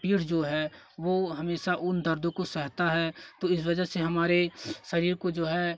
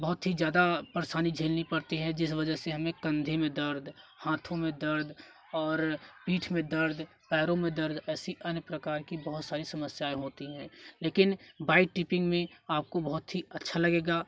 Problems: constant background noise, continuous background conversations